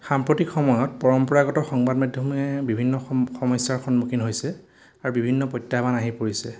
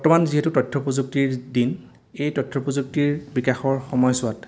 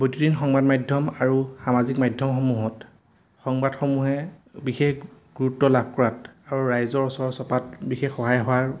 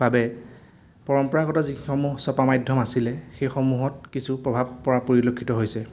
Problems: none marked